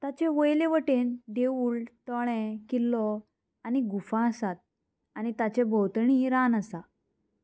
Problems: constant background noise